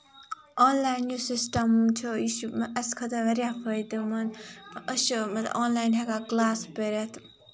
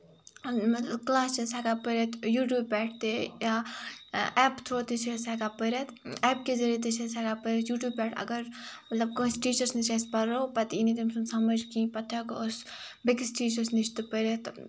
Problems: background sounds at intervals